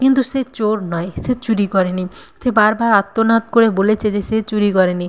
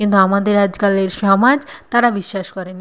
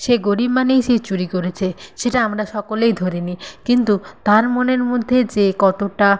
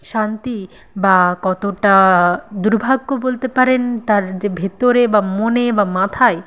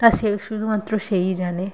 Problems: constant background noise